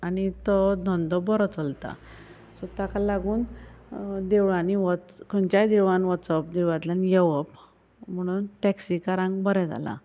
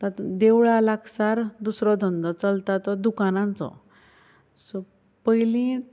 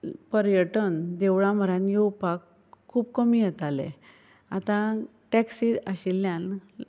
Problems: none marked